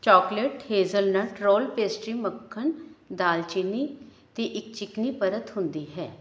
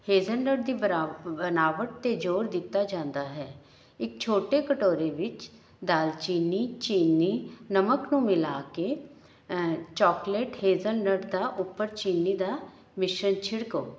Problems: background sounds at intervals